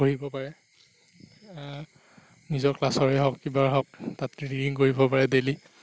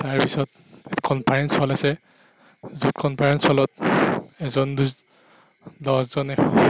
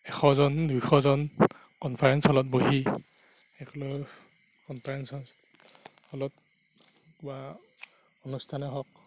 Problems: background sounds at intervals